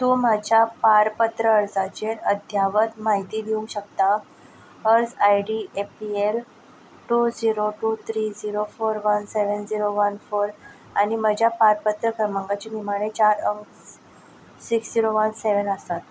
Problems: none marked